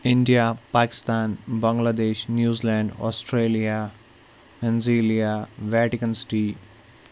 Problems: none marked